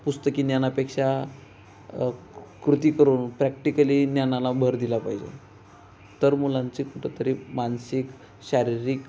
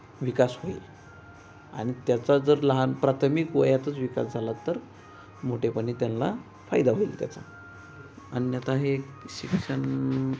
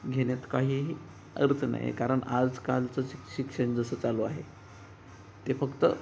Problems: constant background noise